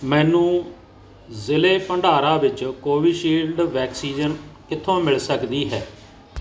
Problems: background sounds at intervals